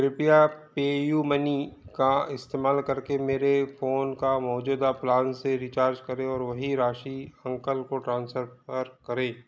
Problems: background sounds at intervals, background conversations at intervals